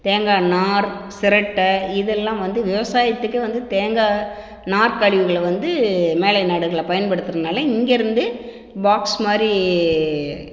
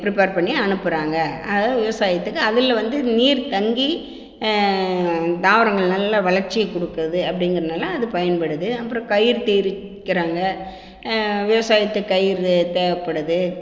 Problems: echo